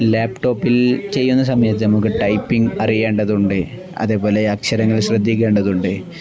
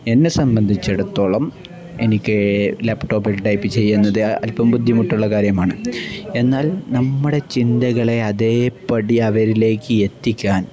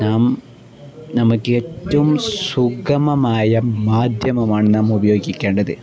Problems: none marked